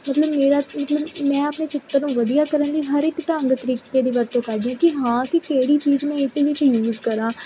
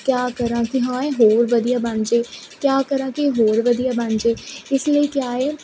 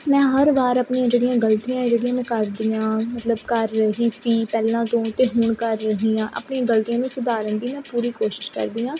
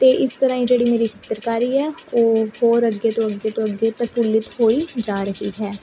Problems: none marked